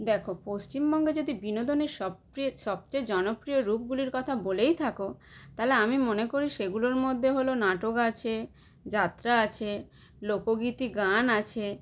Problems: none marked